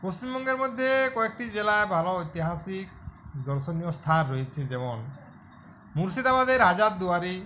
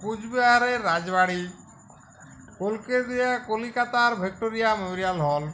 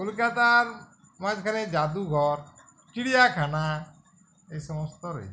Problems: constant background noise, background conversations at intervals